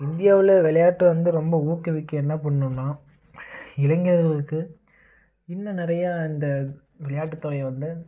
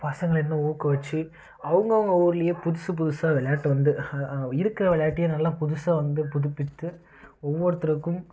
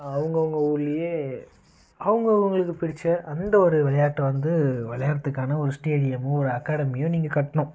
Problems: constant background noise